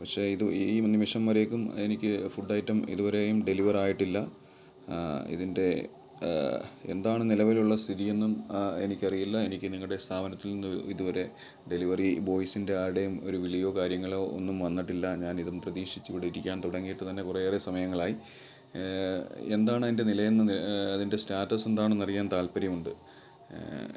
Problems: background sounds at intervals